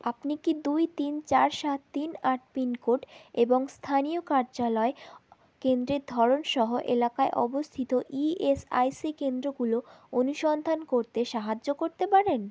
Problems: none marked